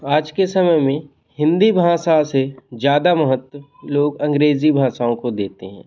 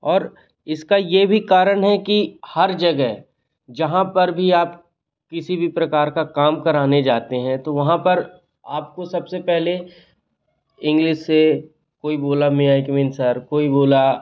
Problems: none marked